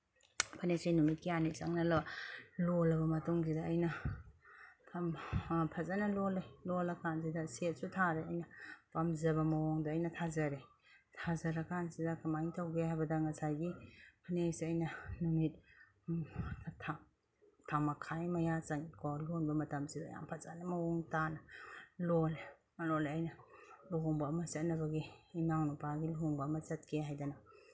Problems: none marked